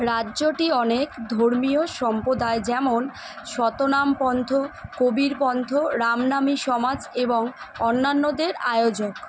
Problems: constant background noise